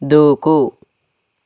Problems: none marked